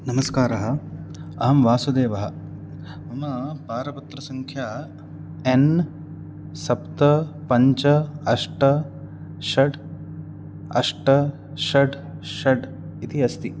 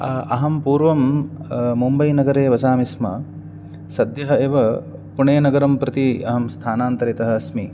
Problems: none marked